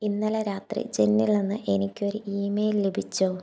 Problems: low volume